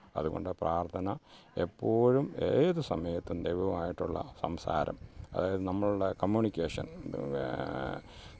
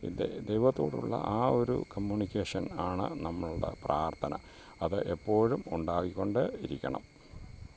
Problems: none marked